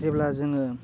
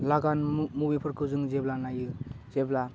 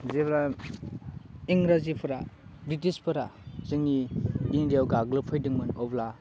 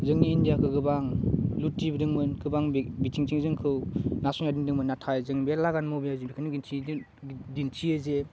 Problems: constant background noise